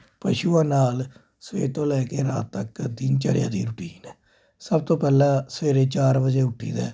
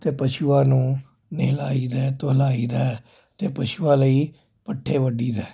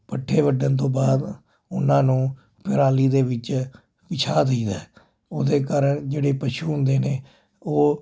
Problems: constant background noise